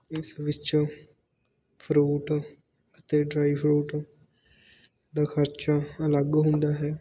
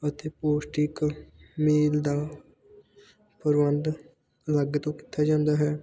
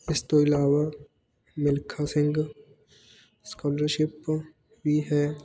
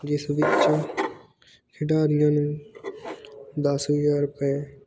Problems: background sounds at intervals, background conversations at intervals